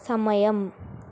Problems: none marked